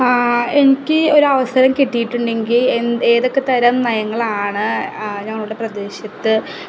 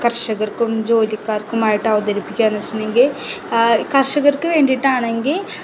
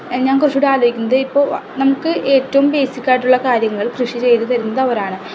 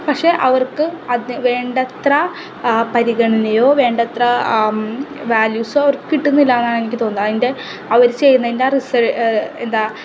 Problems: constant background noise